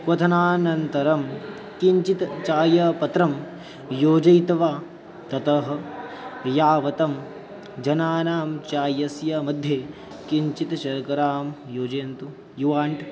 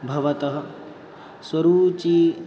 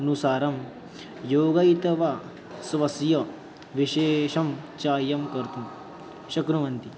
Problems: background sounds at intervals